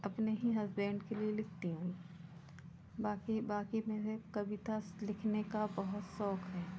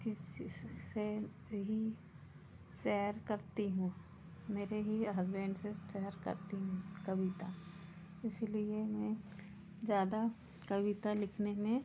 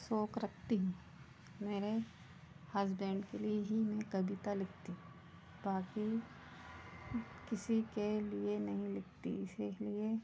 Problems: constant background noise